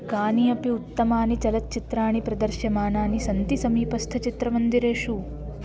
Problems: constant background noise